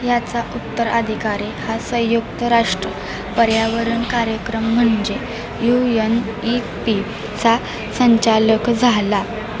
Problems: none marked